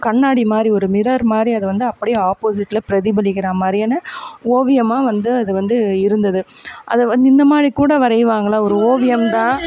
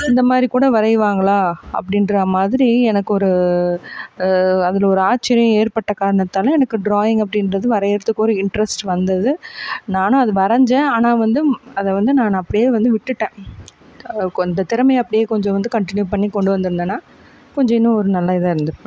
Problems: background sounds at intervals